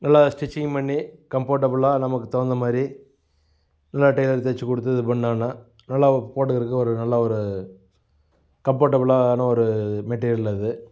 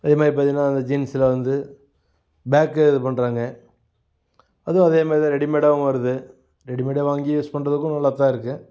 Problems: background sounds at intervals